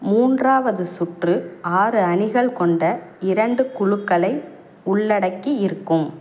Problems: background sounds at intervals